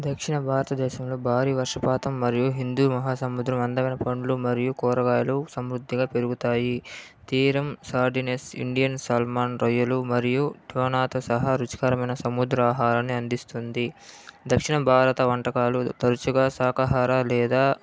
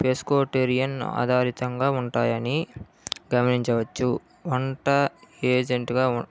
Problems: low volume